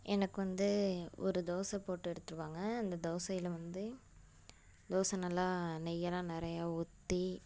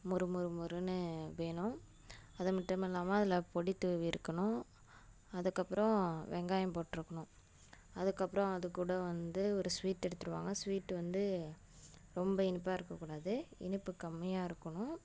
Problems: constant background noise